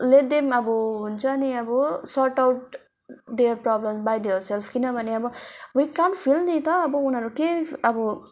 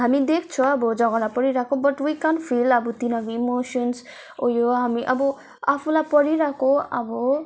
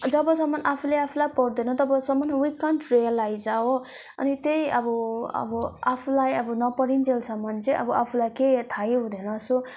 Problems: none marked